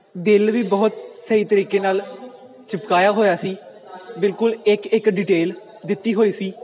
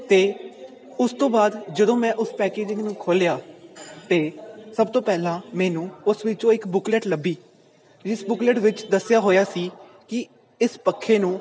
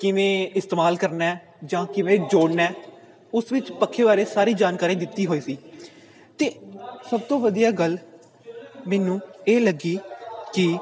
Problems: background sounds at intervals